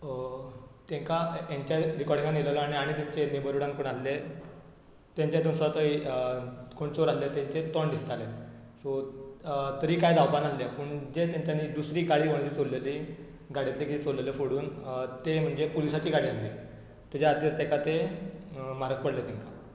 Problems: none marked